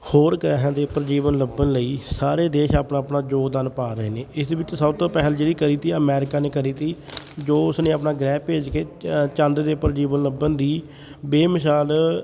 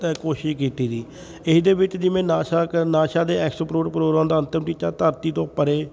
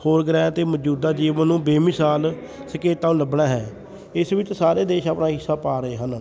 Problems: background sounds at intervals, continuous background conversations